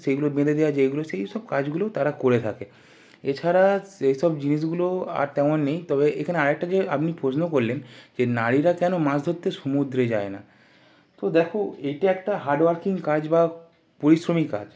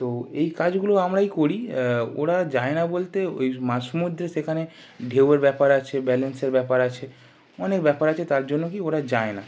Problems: none marked